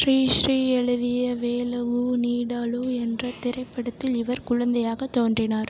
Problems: constant background noise